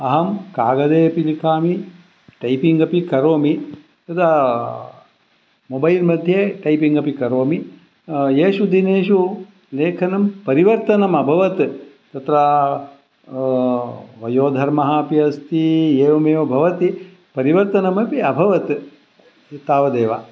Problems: none marked